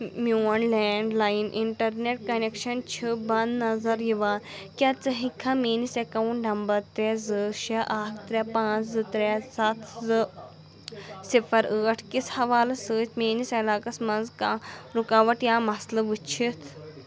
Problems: none marked